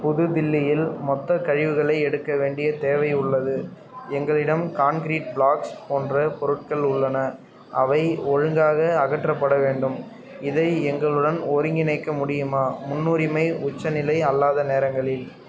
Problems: none marked